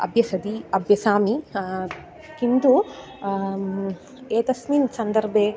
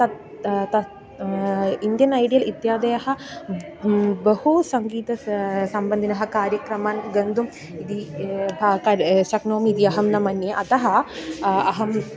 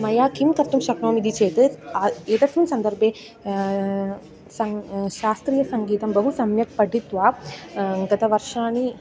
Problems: none marked